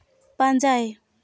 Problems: none marked